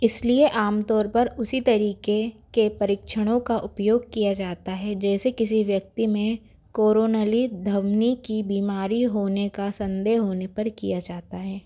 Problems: background sounds at intervals